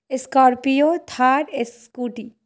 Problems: none marked